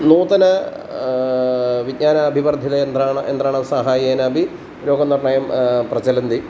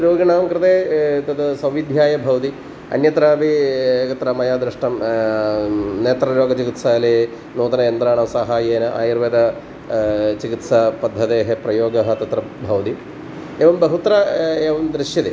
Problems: constant background noise